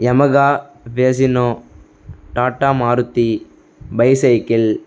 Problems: none marked